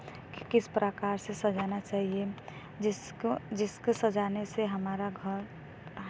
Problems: none marked